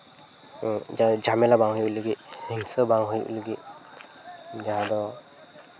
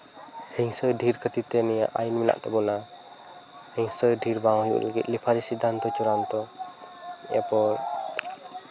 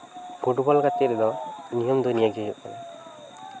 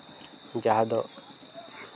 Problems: constant background noise, continuous background conversations